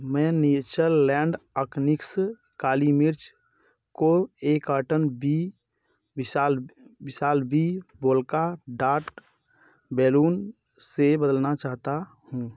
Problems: none marked